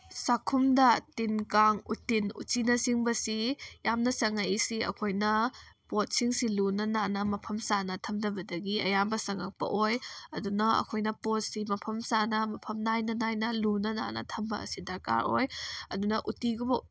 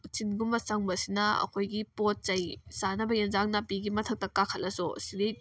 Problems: none marked